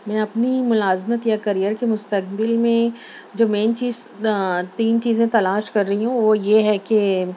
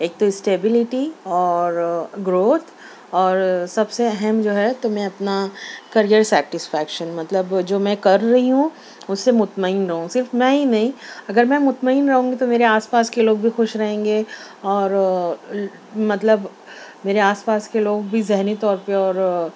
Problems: none marked